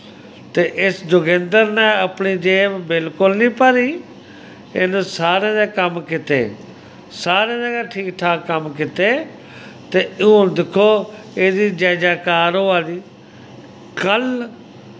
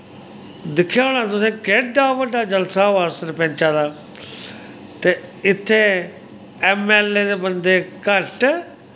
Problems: constant background noise